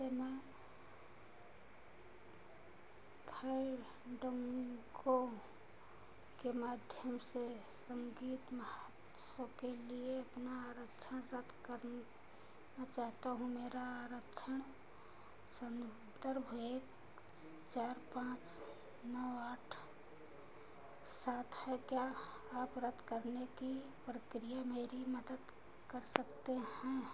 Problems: constant background noise, echo